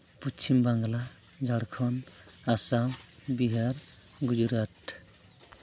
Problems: none marked